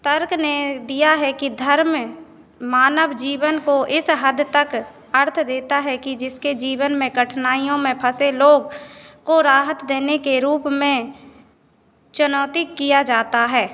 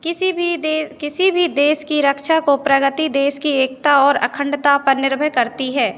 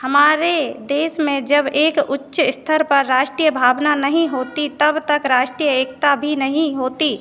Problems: constant background noise